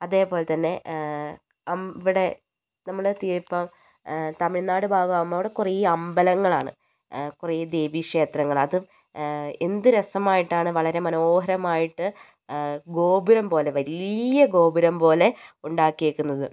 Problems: none marked